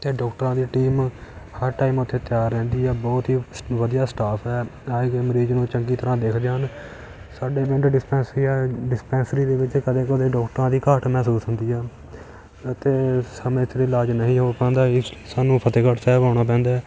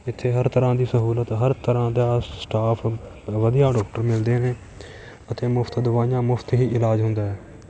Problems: background sounds at intervals